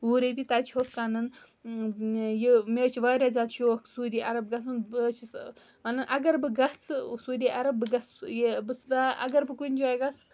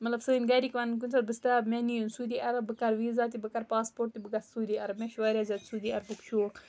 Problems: background sounds at intervals, background conversations at intervals